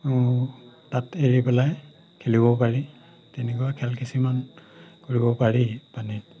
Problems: background sounds at intervals